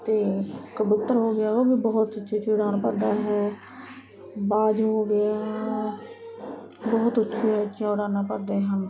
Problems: constant background noise